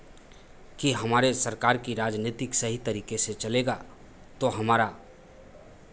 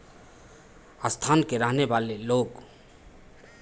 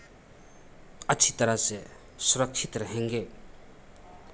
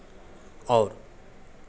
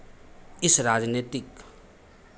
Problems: constant background noise, echo